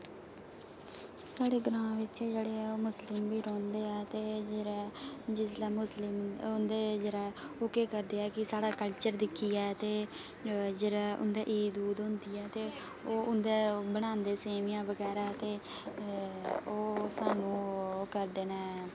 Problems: constant background noise